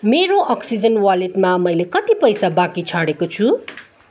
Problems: none marked